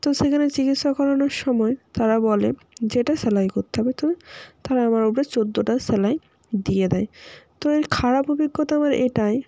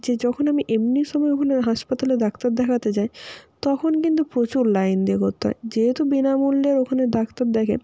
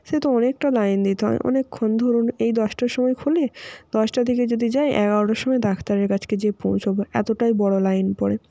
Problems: constant background noise